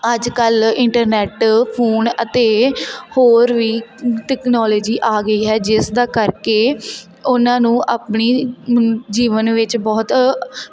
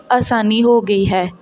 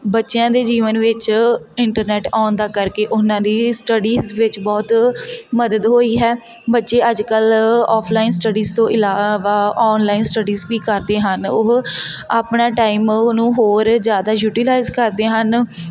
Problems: constant background noise